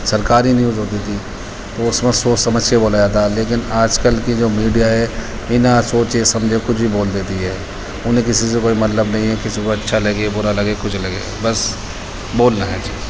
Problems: constant background noise, background conversations at intervals